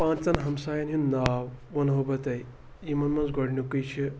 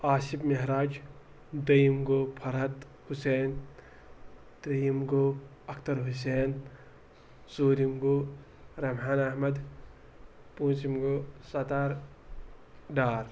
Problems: none marked